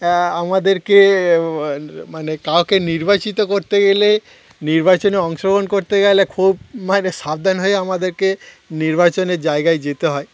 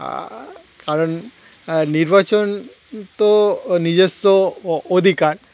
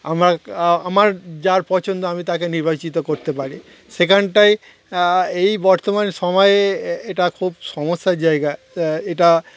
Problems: none marked